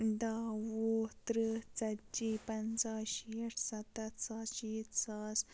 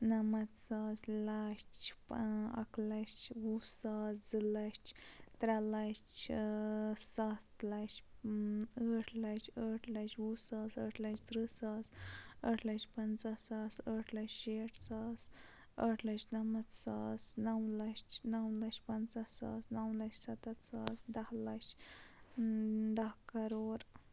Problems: constant background noise, low volume